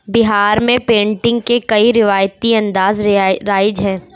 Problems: none marked